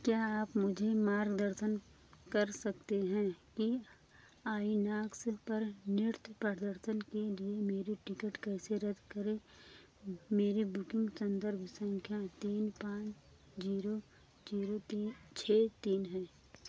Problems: low volume